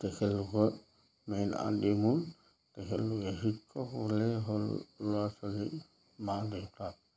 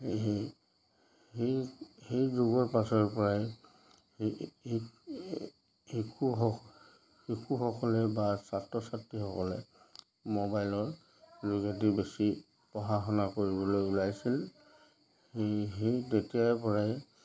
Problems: none marked